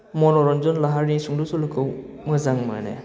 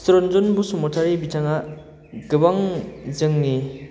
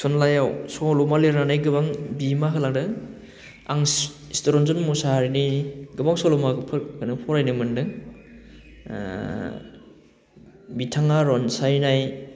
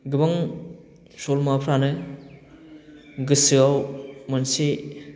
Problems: none marked